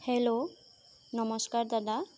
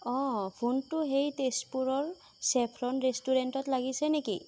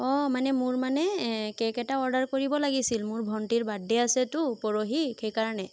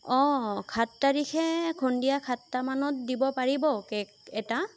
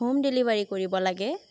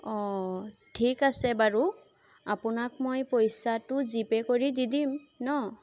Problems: constant background noise